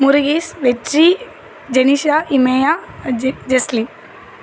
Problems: constant background noise